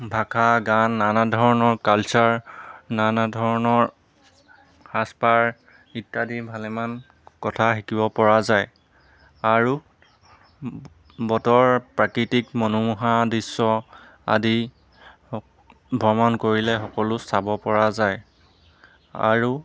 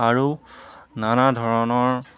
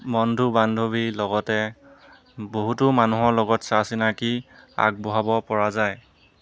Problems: none marked